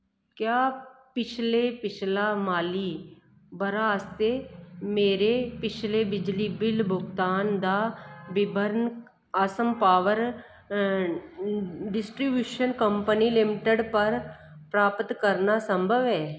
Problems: constant background noise, echo